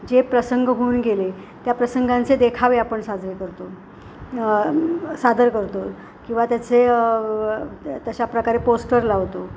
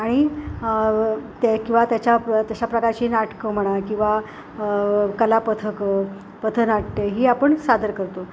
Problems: constant background noise